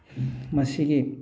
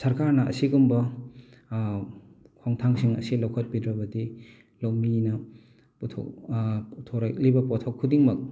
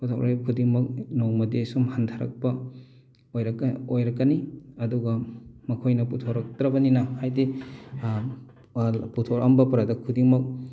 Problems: background sounds at intervals